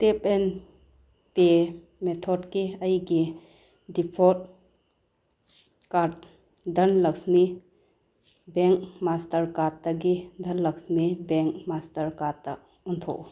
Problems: none marked